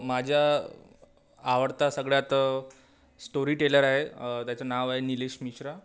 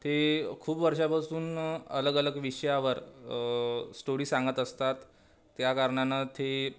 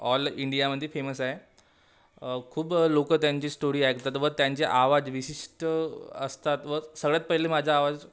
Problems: constant background noise